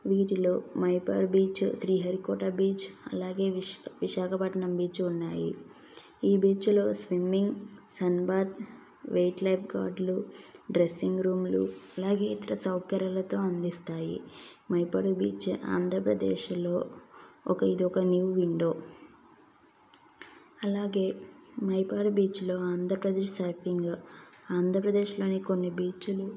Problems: background sounds at intervals